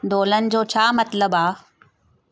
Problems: none marked